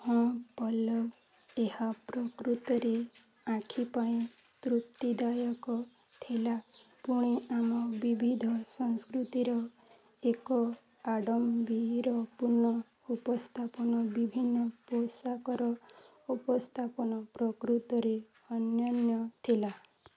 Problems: none marked